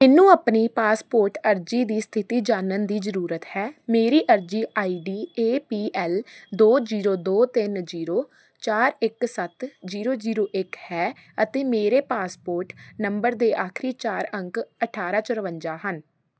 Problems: background sounds at intervals